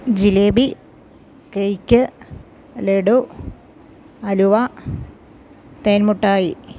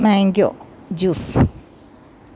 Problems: none marked